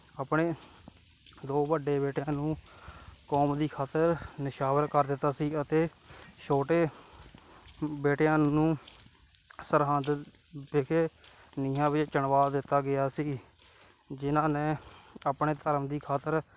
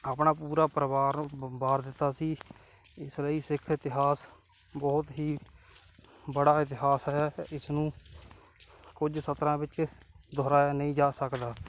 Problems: background sounds at intervals